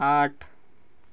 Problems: none marked